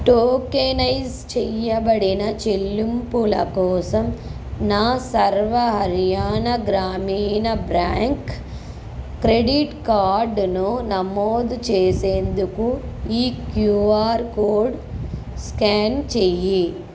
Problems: constant background noise